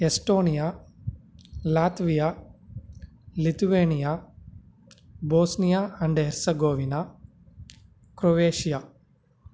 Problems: none marked